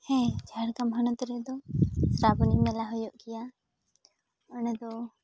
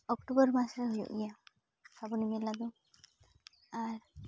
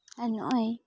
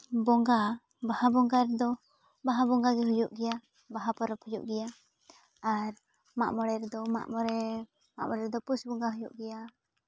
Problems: none marked